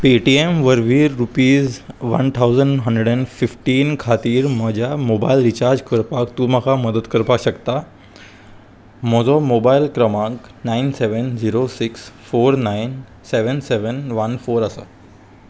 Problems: none marked